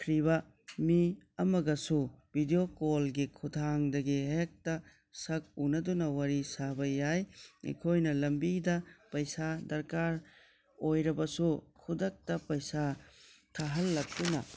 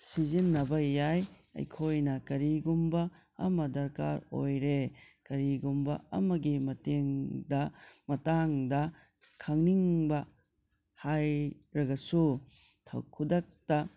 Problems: low volume